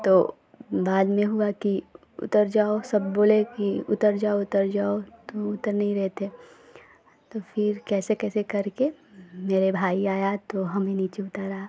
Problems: none marked